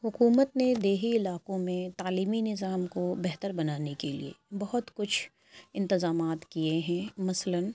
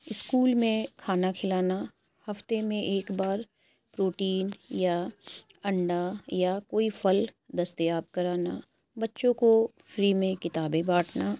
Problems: none marked